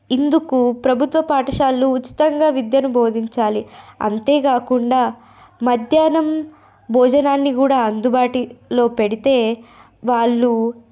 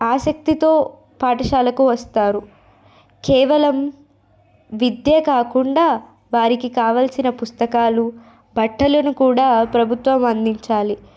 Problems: none marked